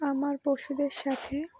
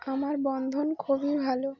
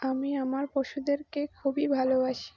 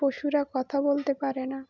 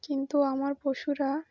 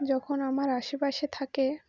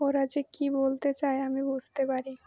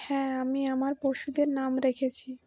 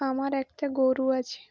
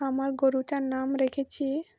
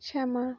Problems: none marked